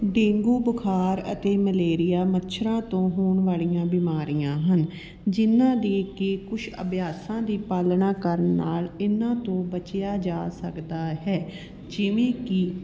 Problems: constant background noise, background conversations at intervals